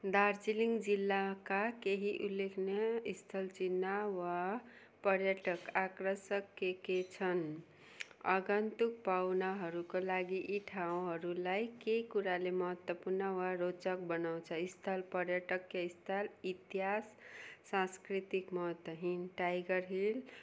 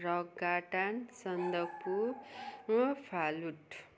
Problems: constant background noise, continuous background conversations